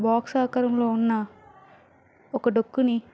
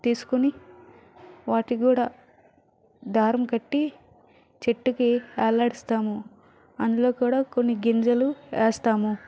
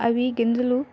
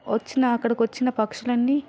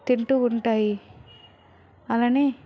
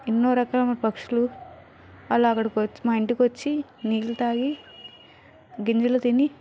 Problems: background conversations at intervals